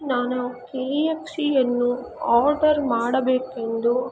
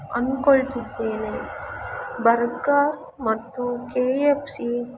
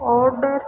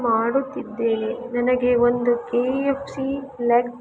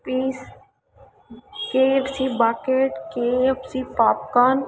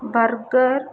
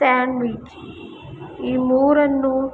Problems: background sounds at intervals